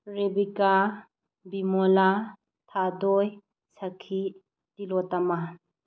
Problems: low volume